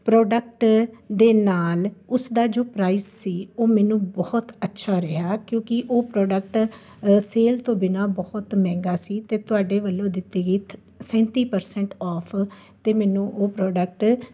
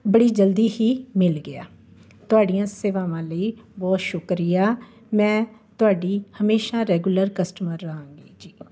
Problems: none marked